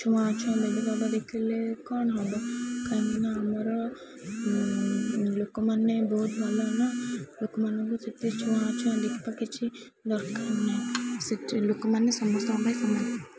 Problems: constant background noise, continuous background conversations